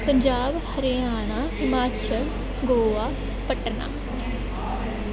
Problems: background conversations at intervals